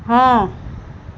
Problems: none marked